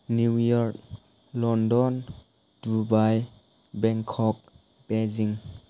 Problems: none marked